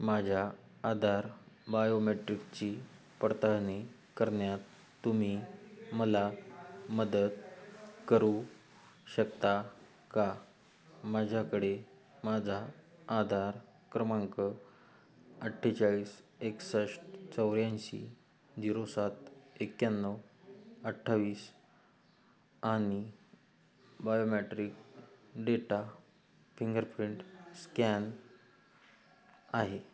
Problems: background sounds at intervals